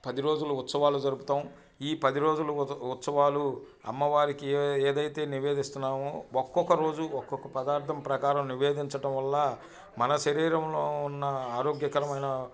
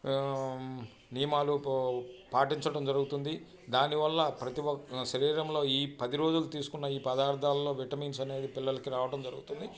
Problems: background sounds at intervals